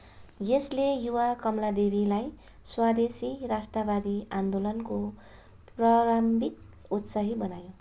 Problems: none marked